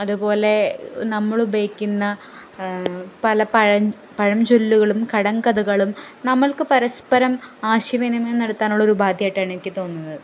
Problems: none marked